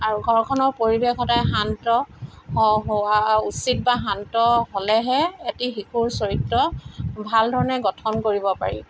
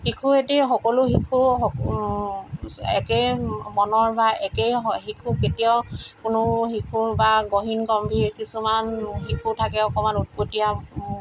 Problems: none marked